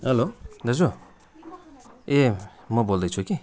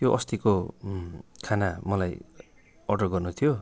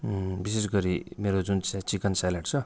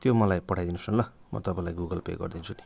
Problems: constant background noise